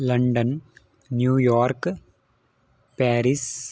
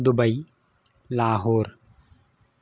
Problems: none marked